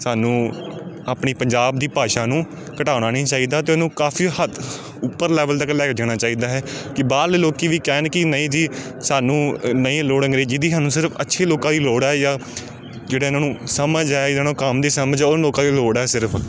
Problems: background sounds at intervals